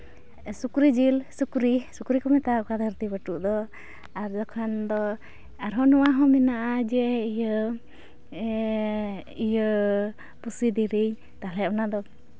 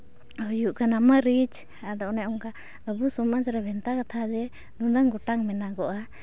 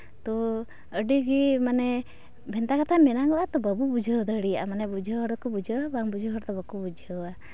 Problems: none marked